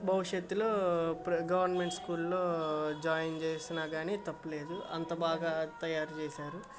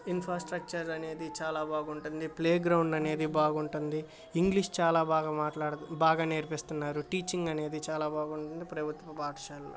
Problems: constant background noise